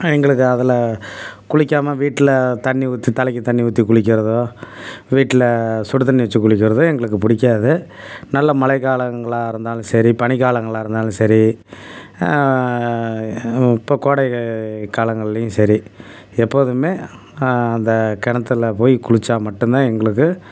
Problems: background sounds at intervals